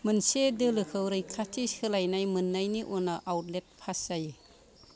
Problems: background sounds at intervals